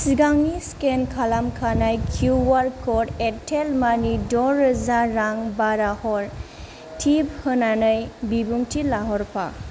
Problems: low volume